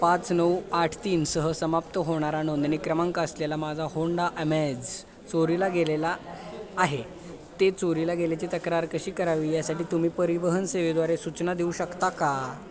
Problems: none marked